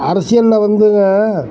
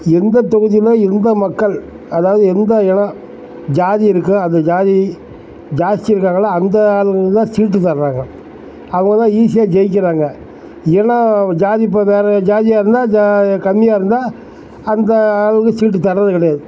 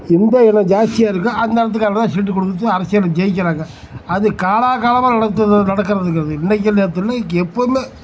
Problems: background sounds at intervals